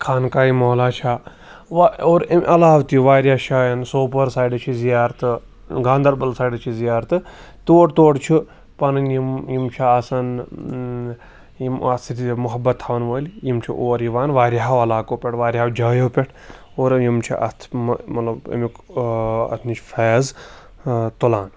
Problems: none marked